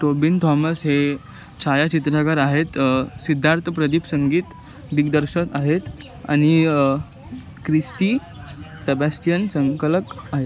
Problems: constant background noise, continuous background conversations